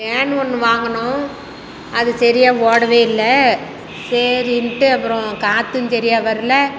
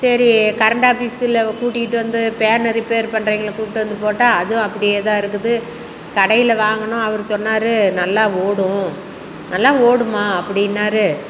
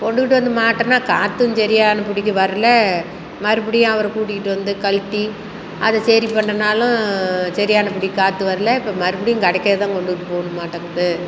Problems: none marked